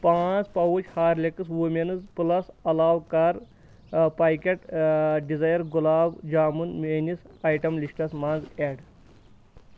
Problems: none marked